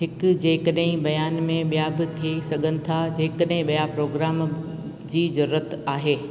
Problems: constant background noise, echo